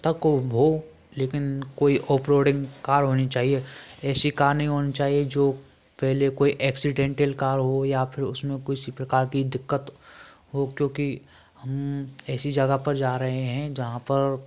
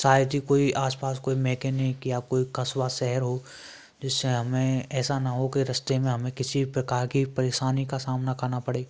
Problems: none marked